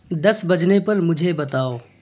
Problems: constant background noise